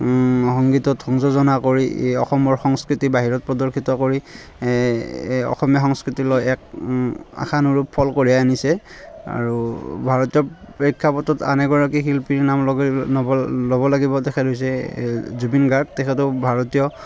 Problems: constant background noise, continuous background conversations